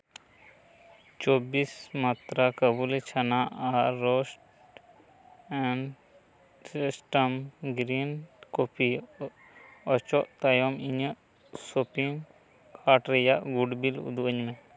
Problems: constant background noise